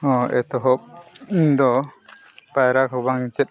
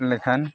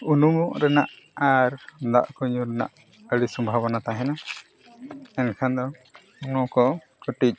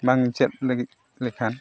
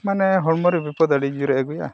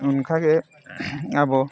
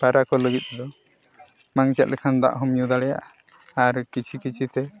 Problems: constant background noise